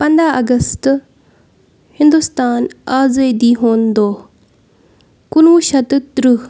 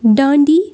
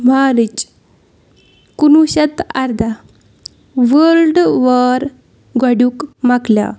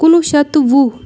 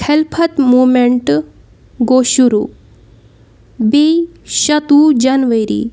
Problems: background sounds at intervals